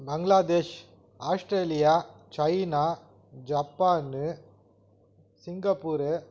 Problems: background sounds at intervals